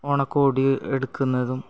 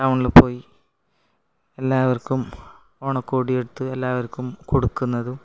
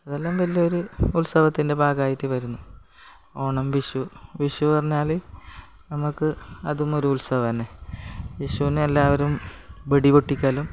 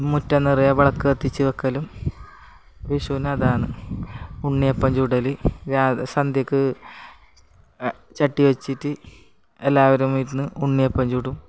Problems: background sounds at intervals, background conversations at intervals